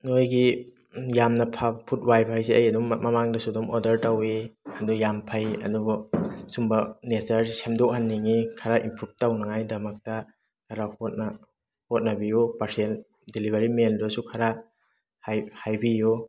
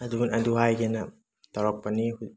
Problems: background sounds at intervals